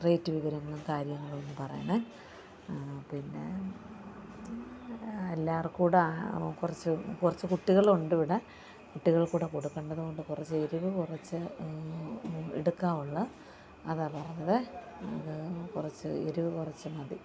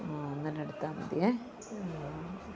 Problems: constant background noise